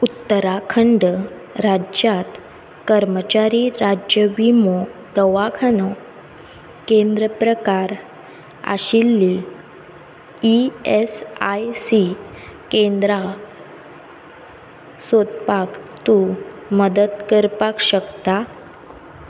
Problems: background sounds at intervals